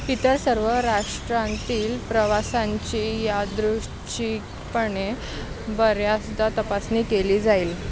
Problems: constant background noise